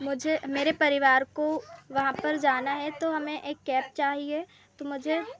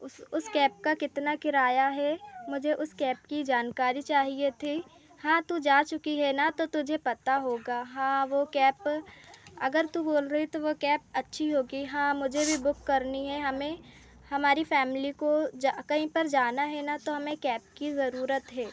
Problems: constant background noise